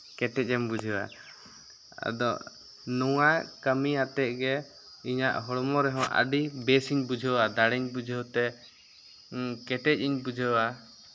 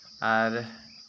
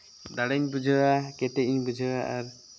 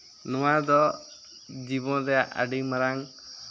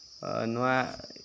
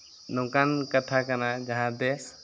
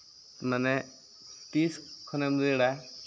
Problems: background sounds at intervals